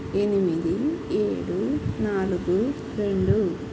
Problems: constant background noise